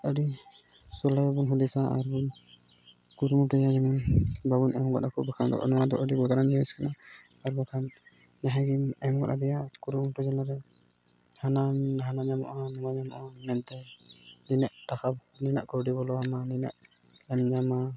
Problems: background sounds at intervals